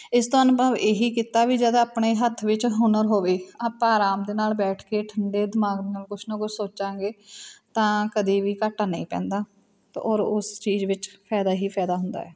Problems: constant background noise, background conversations at intervals